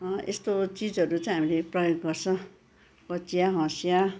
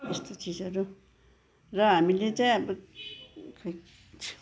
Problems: background sounds at intervals